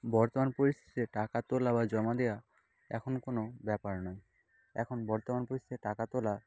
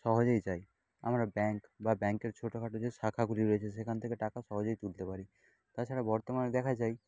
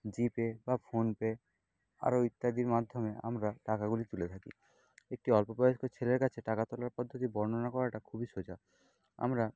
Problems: background sounds at intervals